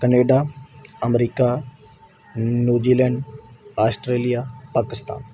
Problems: none marked